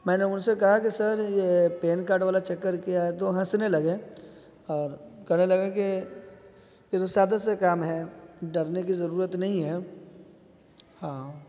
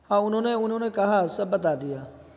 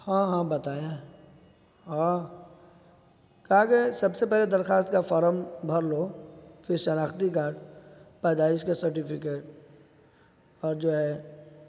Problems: constant background noise